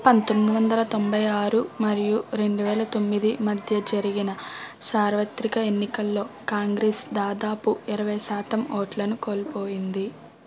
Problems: background conversations at intervals